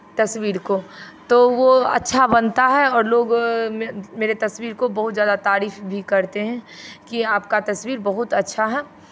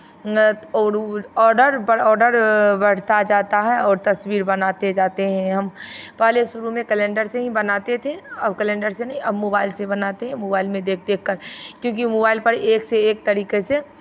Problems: background sounds at intervals